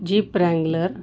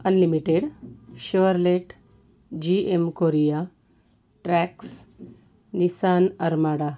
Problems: constant background noise